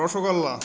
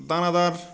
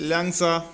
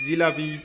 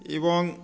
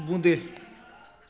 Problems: constant background noise, continuous background conversations